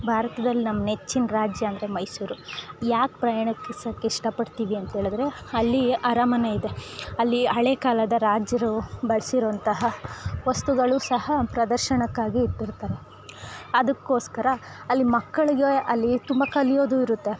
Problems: background sounds at intervals